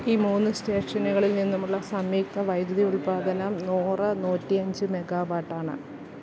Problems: none marked